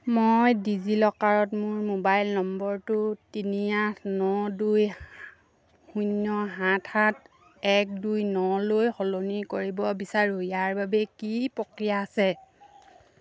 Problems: none marked